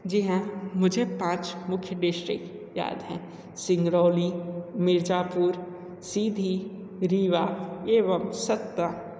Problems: constant background noise